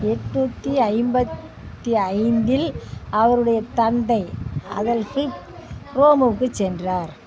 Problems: constant background noise, continuous background conversations